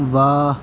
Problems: none marked